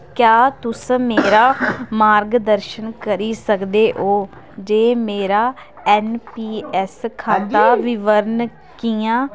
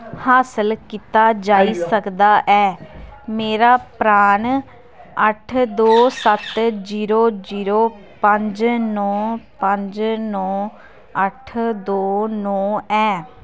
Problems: constant background noise